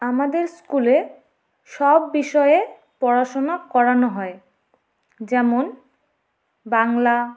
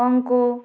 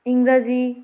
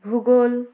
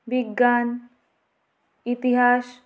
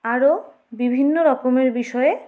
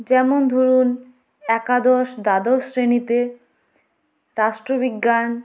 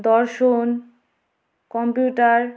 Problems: none marked